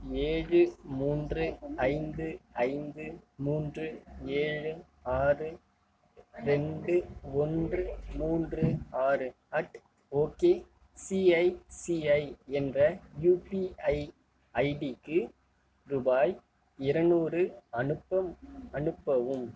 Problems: low volume